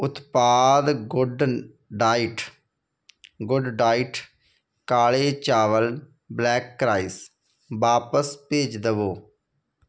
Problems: none marked